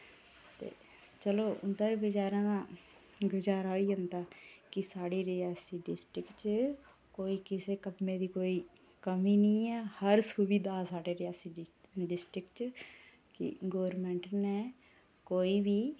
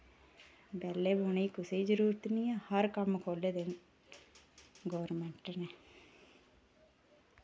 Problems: none marked